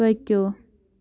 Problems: background sounds at intervals